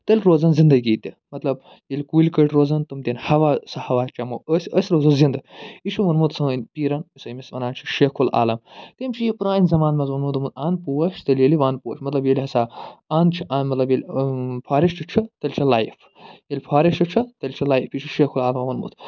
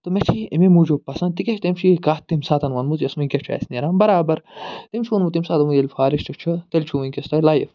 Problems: none marked